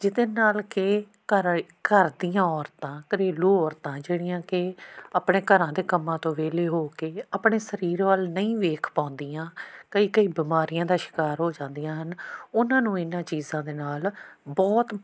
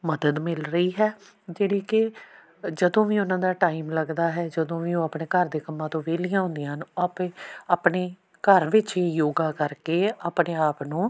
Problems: background sounds at intervals